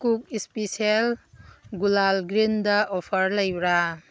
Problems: background sounds at intervals